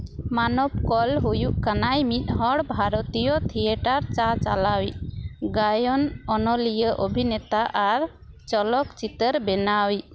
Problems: constant background noise